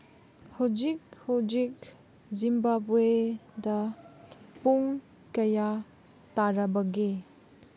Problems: none marked